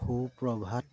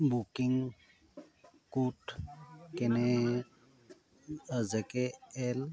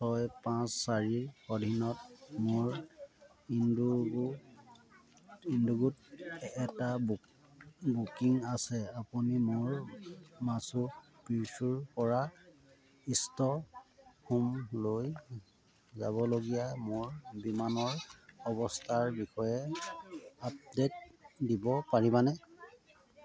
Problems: none marked